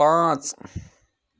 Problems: background sounds at intervals